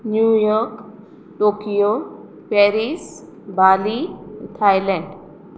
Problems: constant background noise